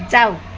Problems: low volume